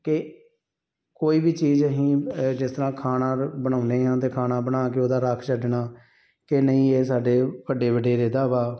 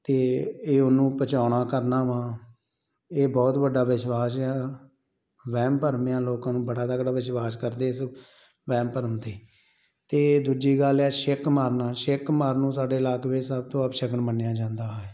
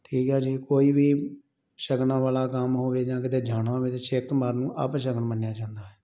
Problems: none marked